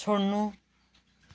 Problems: none marked